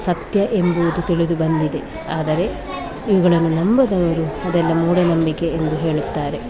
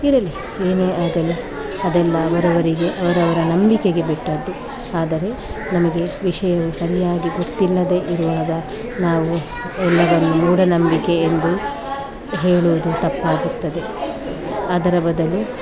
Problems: constant background noise